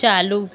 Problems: constant background noise, echo